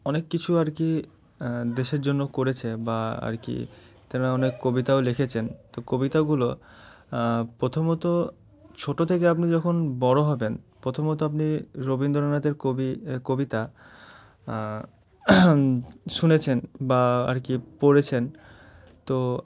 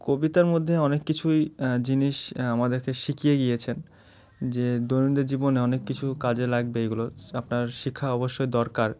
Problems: constant background noise